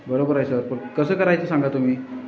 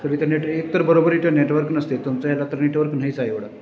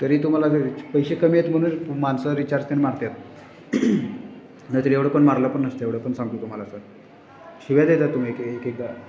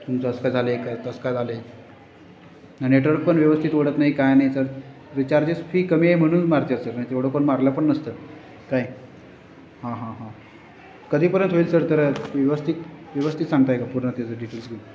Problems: constant background noise, continuous background conversations